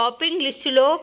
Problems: background sounds at intervals